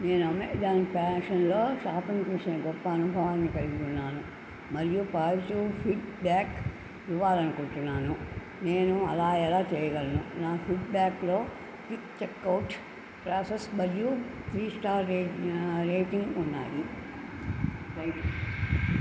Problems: constant background noise, low volume